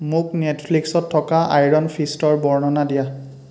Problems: constant background noise